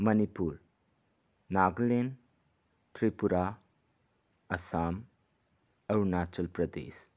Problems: none marked